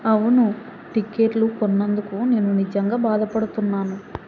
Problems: constant background noise